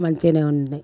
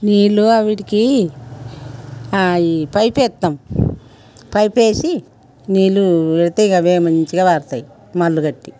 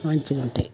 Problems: background sounds at intervals